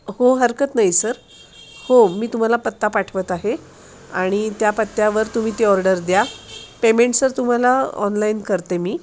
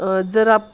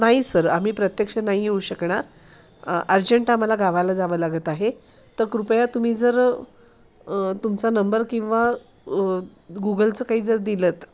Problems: constant background noise, continuous background conversations